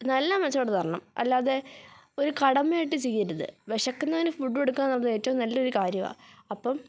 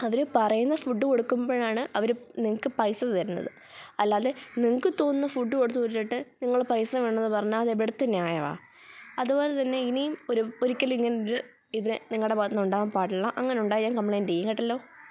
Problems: background sounds at intervals